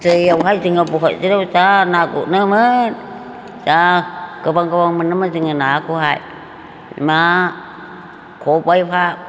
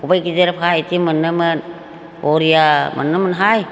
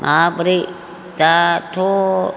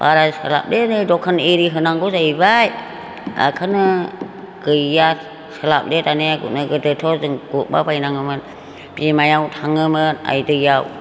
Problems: constant background noise